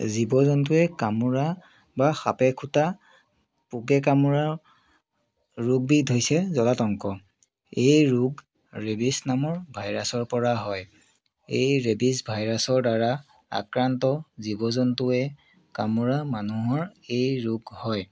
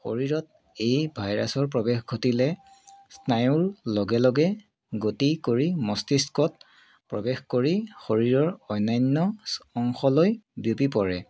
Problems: continuous background conversations